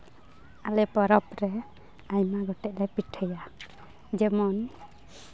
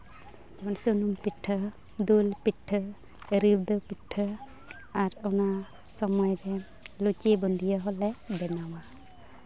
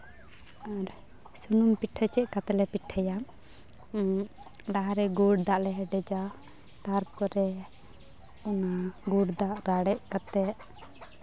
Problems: constant background noise